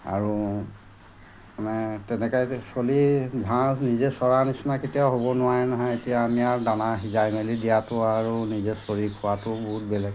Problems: constant background noise